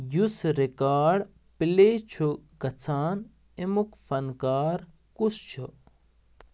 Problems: background sounds at intervals